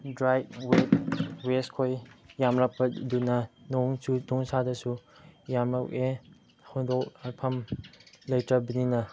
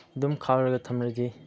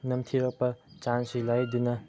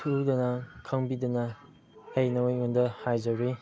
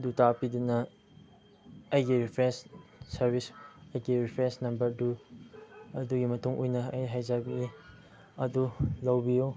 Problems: background sounds at intervals, low volume